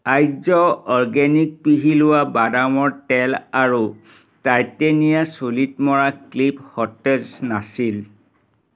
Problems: none marked